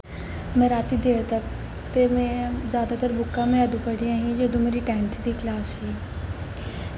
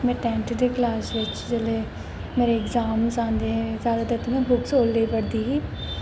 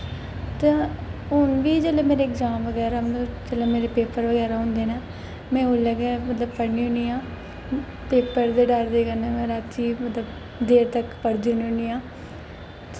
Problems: constant background noise, echo